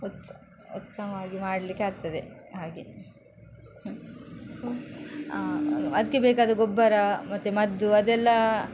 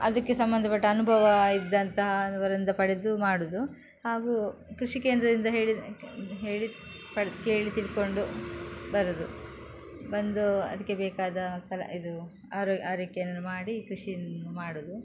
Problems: background sounds at intervals